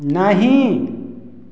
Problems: echo